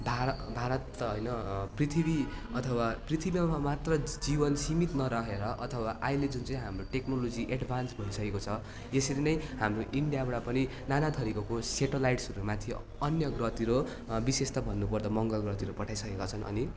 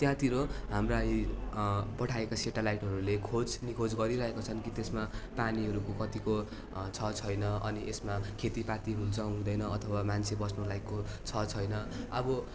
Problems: constant background noise